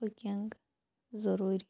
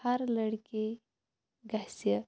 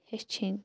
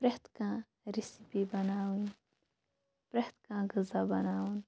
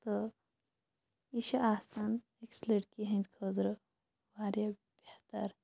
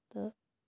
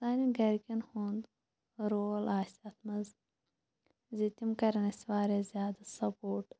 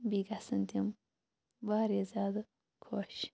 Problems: low volume